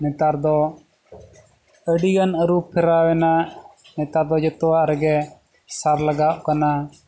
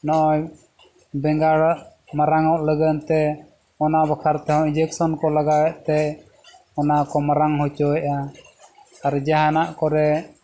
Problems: none marked